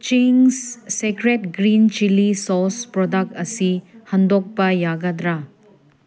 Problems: none marked